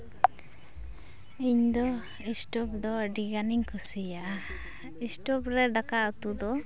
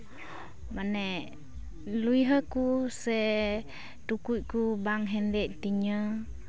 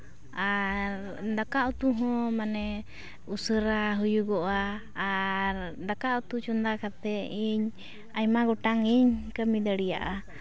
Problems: background sounds at intervals, continuous background conversations